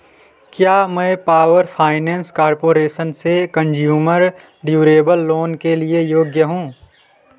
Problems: none marked